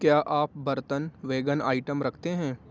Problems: constant background noise, low volume